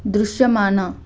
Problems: none marked